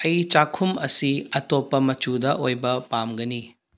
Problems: low volume